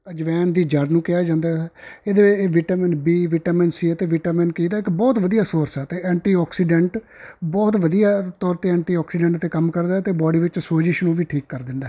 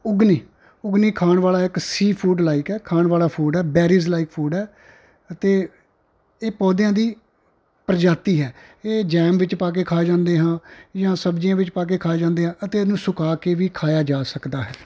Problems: background sounds at intervals